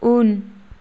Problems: constant background noise